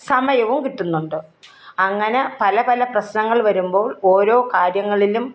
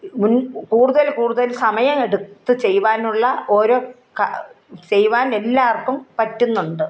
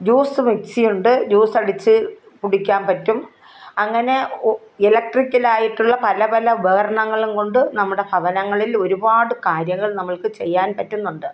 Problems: none marked